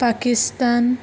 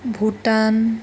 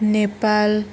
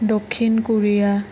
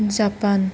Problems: constant background noise